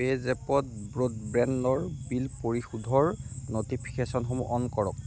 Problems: constant background noise, low volume